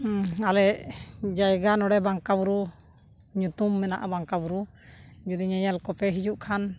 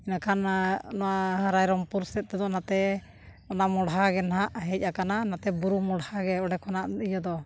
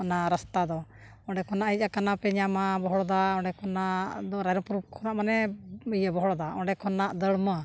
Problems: background sounds at intervals